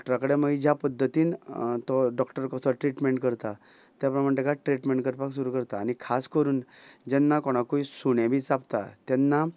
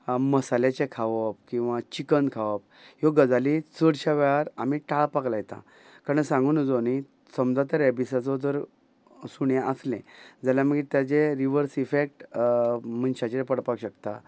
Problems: constant background noise